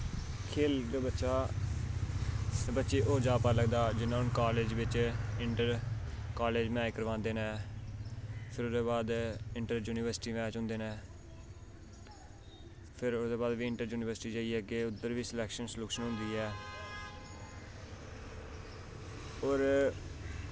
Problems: constant background noise